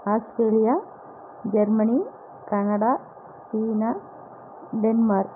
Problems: none marked